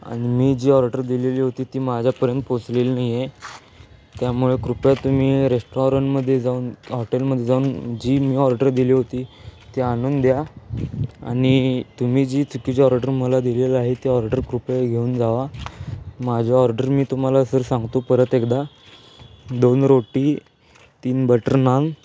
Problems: constant background noise, continuous background conversations